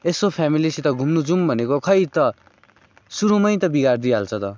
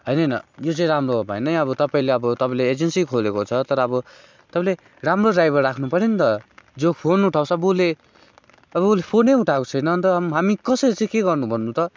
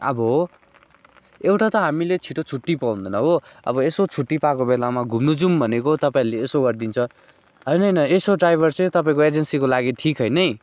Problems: constant background noise